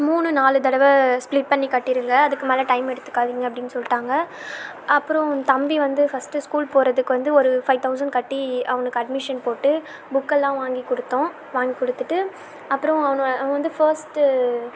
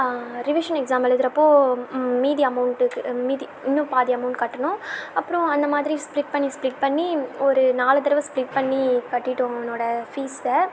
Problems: constant background noise